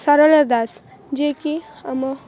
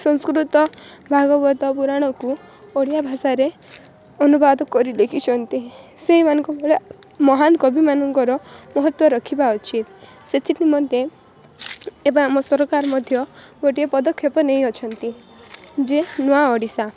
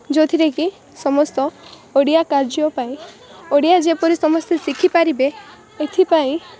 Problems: constant background noise